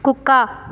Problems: constant background noise